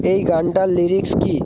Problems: constant background noise